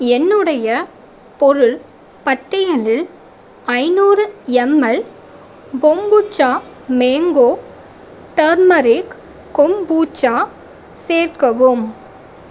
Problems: constant background noise